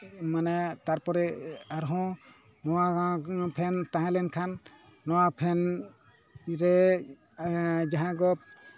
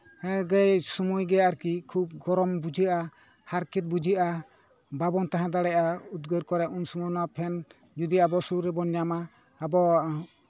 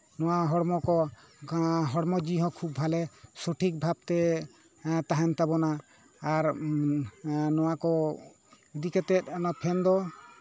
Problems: continuous background conversations